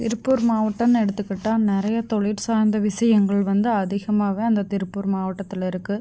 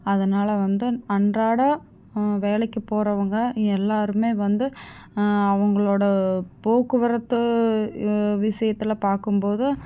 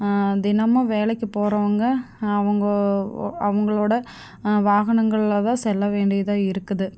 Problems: none marked